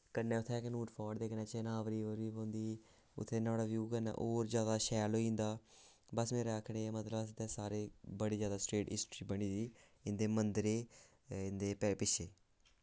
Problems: constant background noise